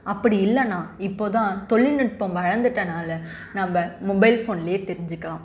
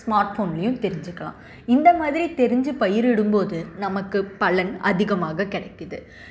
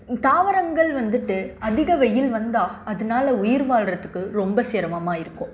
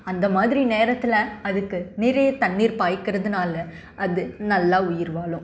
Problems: none marked